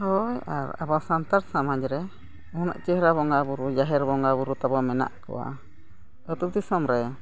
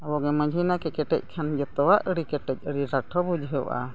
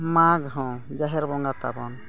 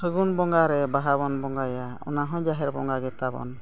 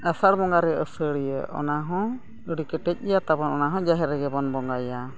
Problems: constant background noise, background conversations at intervals